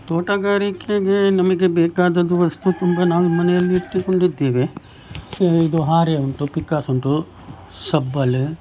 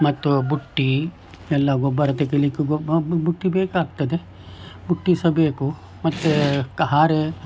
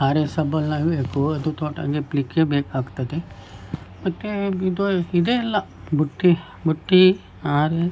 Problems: background sounds at intervals